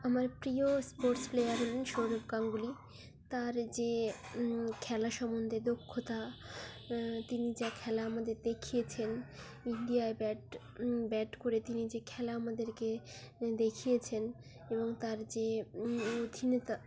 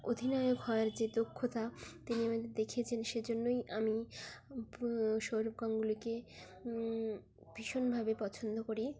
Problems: background sounds at intervals